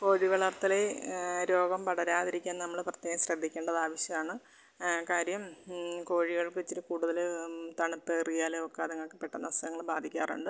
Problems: none marked